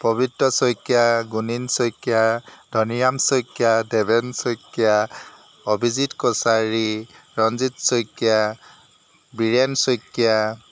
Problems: none marked